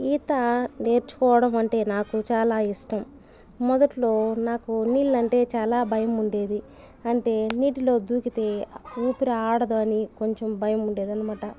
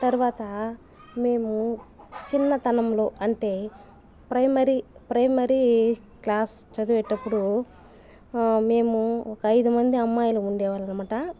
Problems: constant background noise, background conversations at intervals